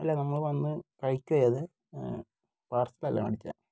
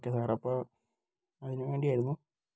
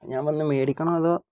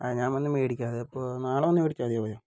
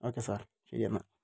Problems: low volume